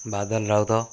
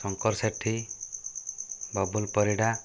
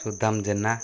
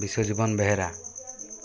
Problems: constant background noise